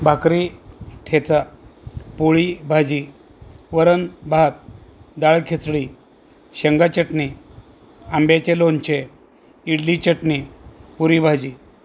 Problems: constant background noise